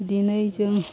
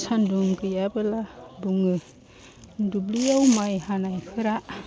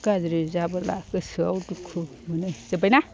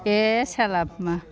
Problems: constant background noise